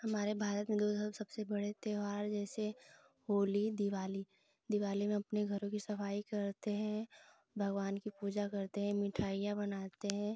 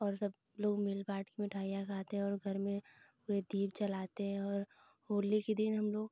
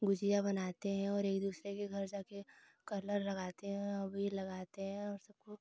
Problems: constant background noise